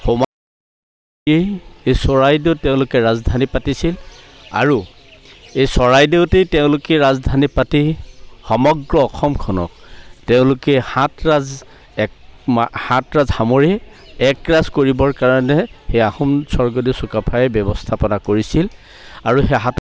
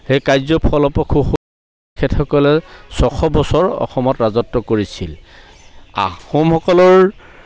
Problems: none marked